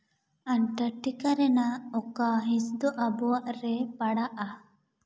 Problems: echo